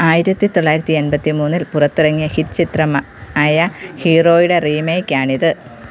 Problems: constant background noise